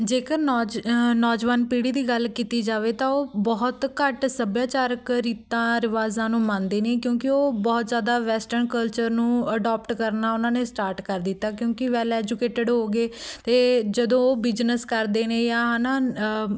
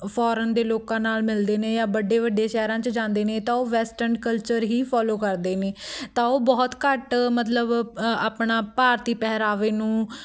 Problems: background sounds at intervals, background conversations at intervals